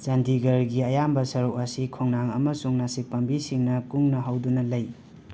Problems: constant background noise